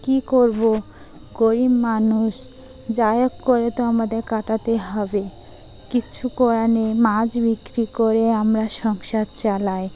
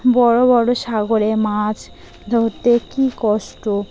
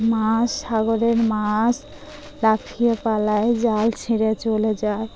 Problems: constant background noise